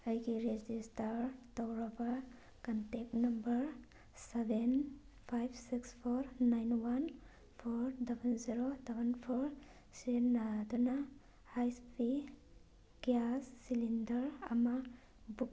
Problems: none marked